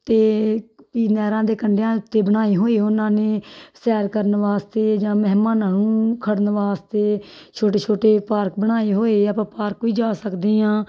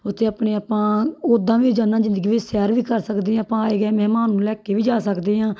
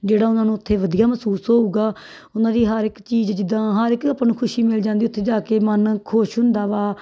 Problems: background sounds at intervals